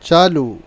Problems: none marked